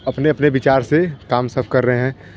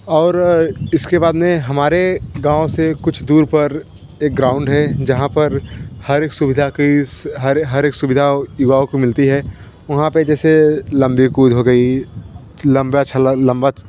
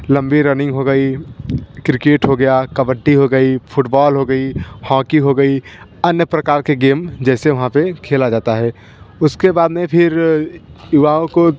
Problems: none marked